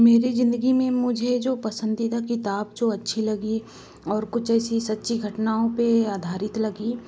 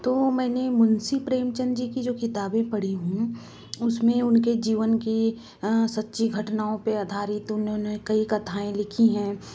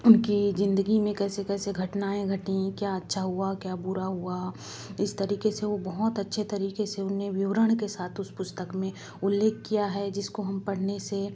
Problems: background sounds at intervals